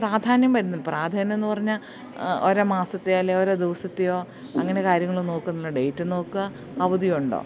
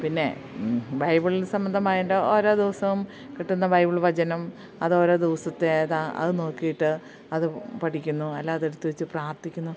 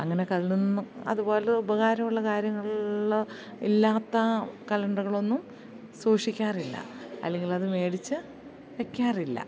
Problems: background sounds at intervals